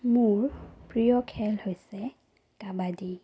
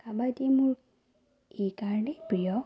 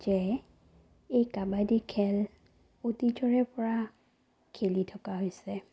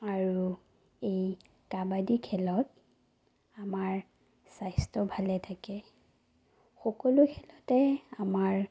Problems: low volume